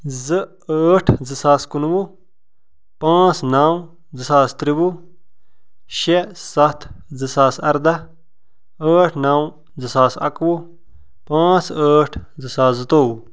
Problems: none marked